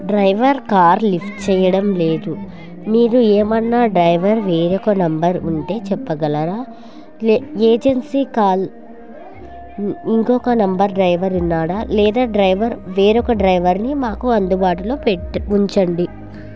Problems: none marked